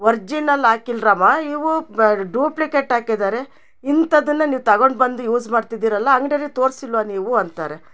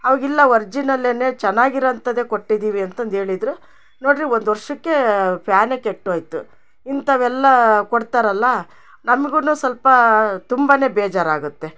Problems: none marked